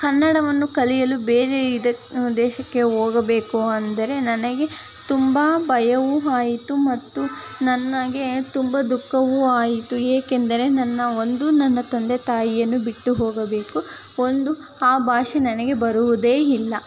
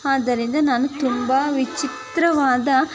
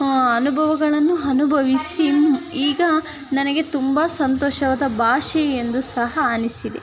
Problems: background sounds at intervals, background conversations at intervals